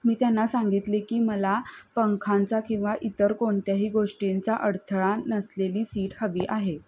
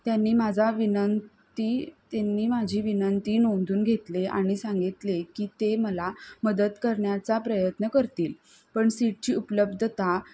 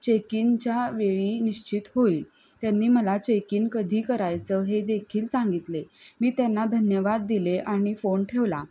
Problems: none marked